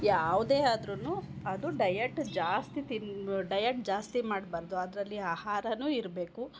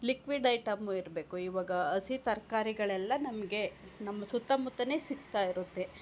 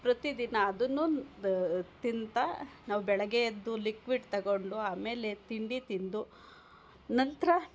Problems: none marked